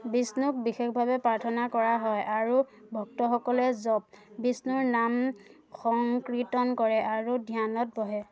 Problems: constant background noise